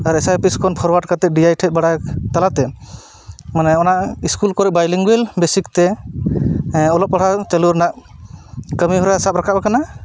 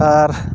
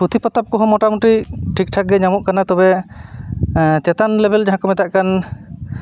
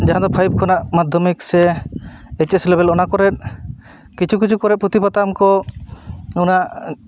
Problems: none marked